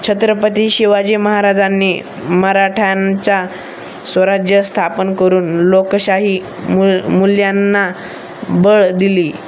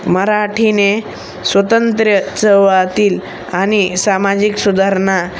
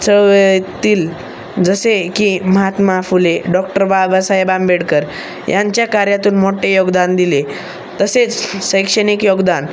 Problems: constant background noise, background conversations at intervals